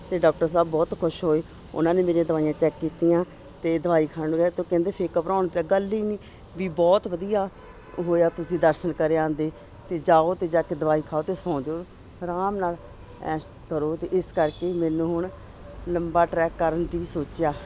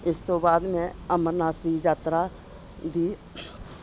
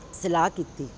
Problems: constant background noise